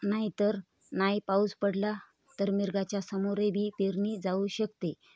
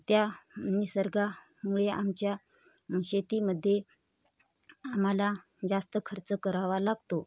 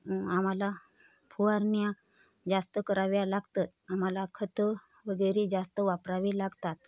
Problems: none marked